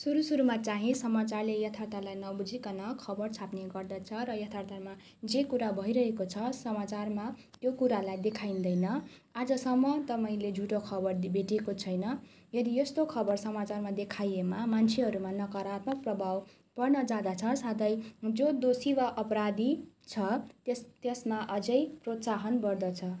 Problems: continuous background conversations